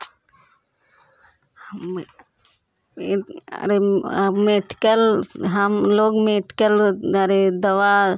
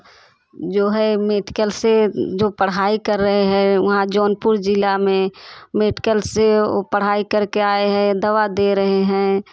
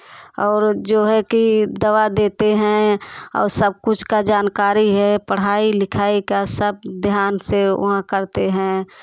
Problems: constant background noise, continuous background conversations